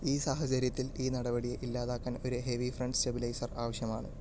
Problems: background sounds at intervals, low volume